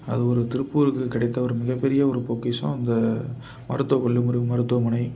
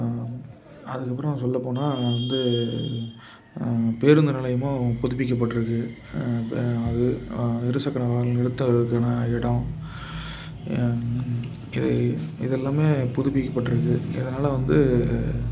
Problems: constant background noise